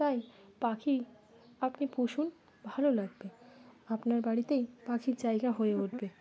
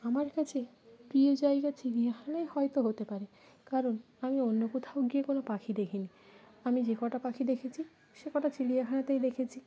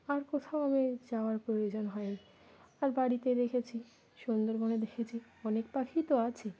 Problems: background sounds at intervals